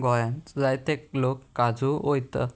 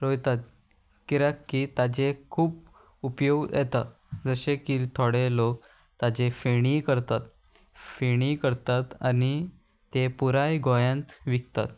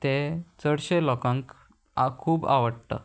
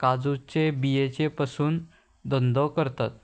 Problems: constant background noise